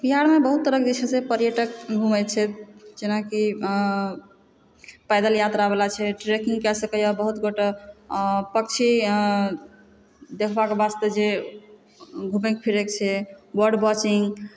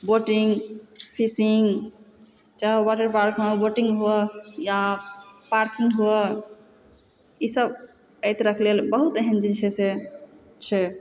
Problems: background sounds at intervals